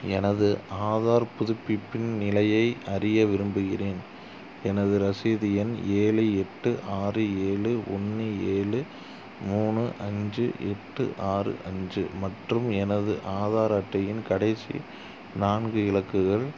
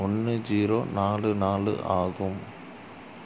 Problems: constant background noise